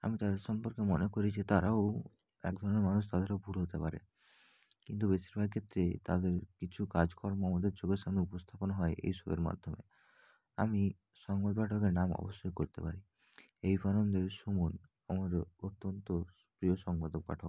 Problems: background sounds at intervals